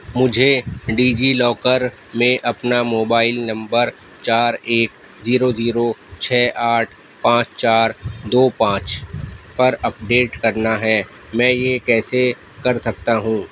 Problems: constant background noise